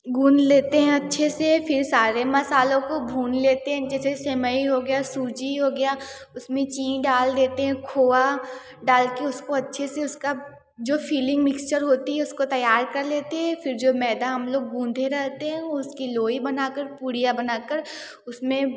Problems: background sounds at intervals, background conversations at intervals